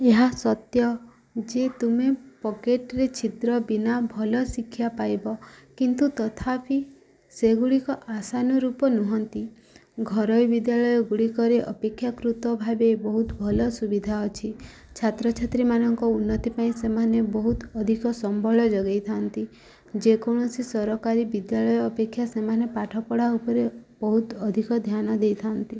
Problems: background sounds at intervals